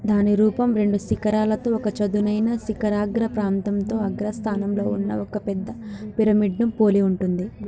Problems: constant background noise, continuous background conversations